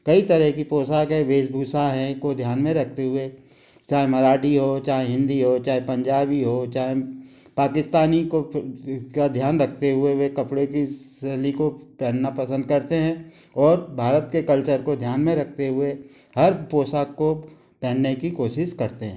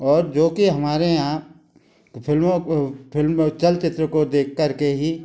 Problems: constant background noise